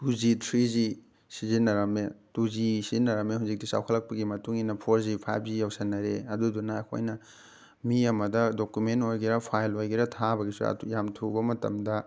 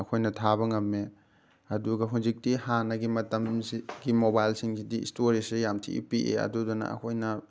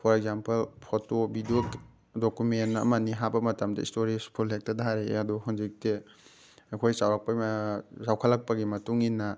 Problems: background sounds at intervals